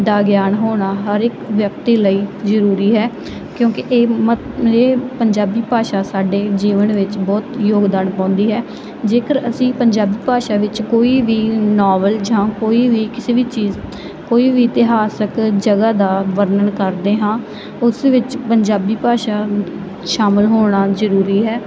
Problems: none marked